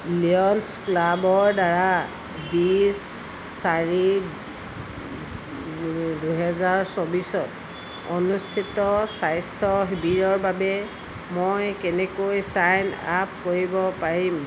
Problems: constant background noise